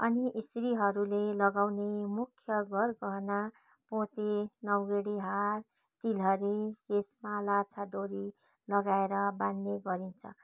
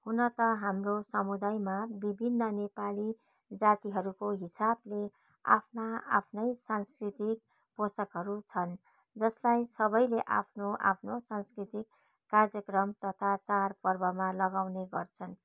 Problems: background sounds at intervals